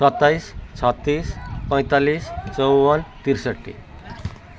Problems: constant background noise, continuous background conversations